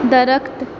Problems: none marked